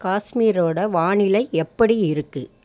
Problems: none marked